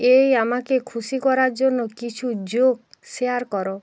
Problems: constant background noise